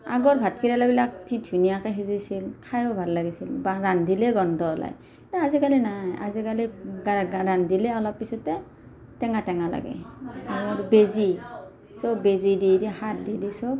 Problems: none marked